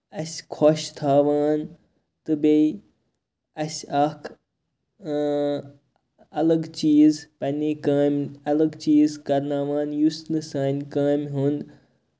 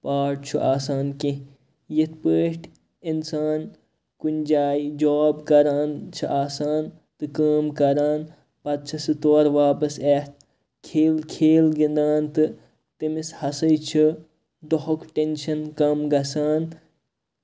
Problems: constant background noise